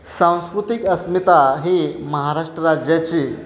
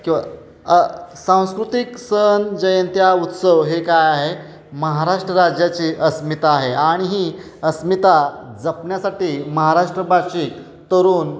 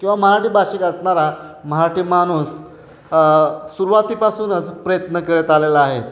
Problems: none marked